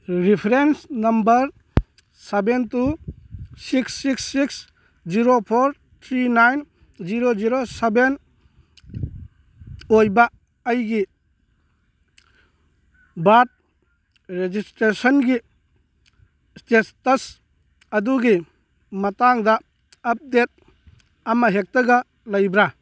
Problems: none marked